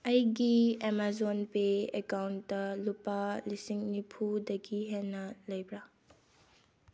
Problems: low volume